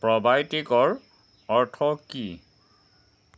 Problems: constant background noise